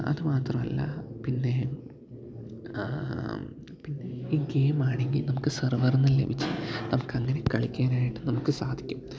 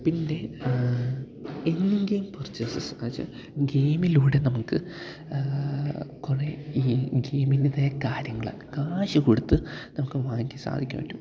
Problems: background sounds at intervals, low volume